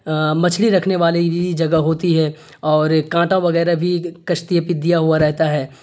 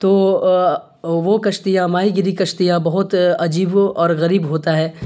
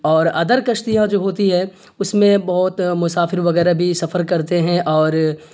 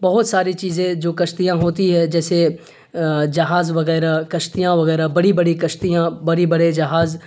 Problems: constant background noise